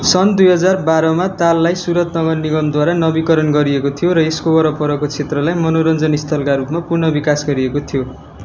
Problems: background sounds at intervals